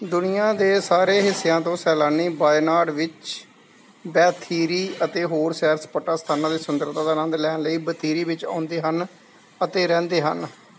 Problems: none marked